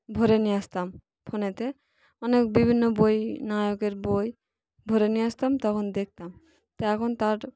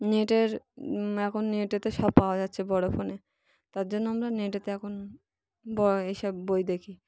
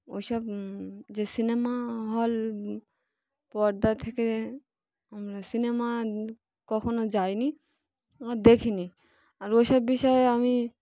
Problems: constant background noise, continuous background conversations